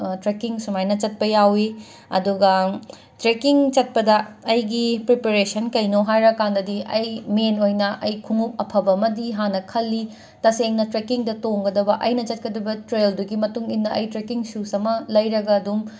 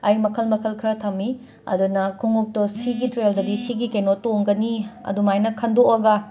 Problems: constant background noise